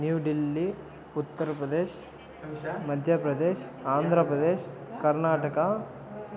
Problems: continuous background conversations